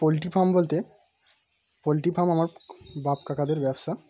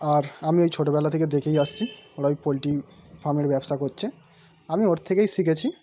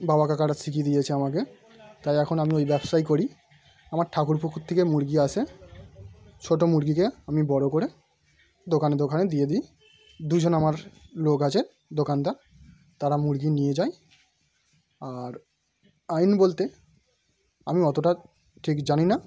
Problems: background sounds at intervals